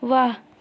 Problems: none marked